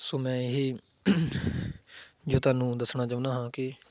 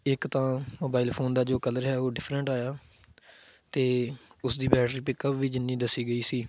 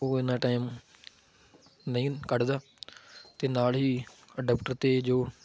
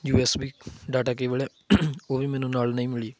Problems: background sounds at intervals